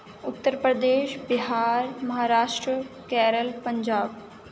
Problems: none marked